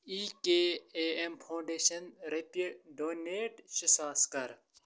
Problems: constant background noise